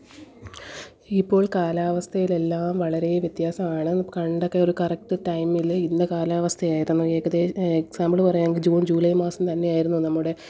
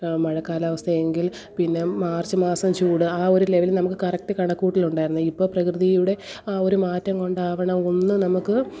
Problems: background sounds at intervals